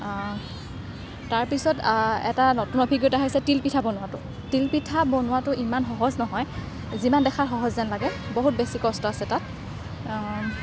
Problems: none marked